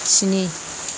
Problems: constant background noise